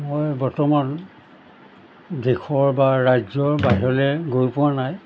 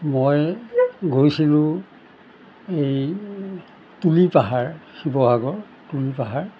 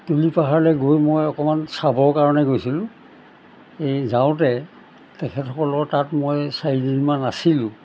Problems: background sounds at intervals